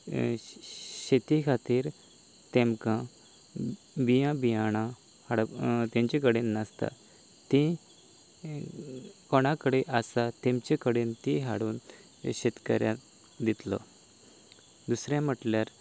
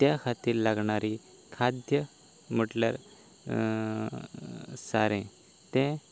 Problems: none marked